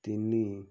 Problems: low volume